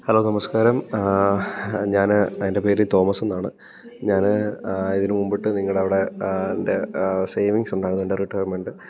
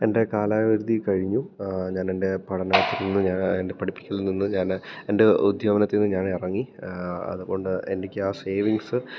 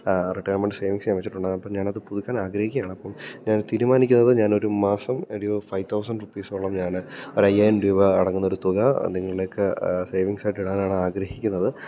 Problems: low volume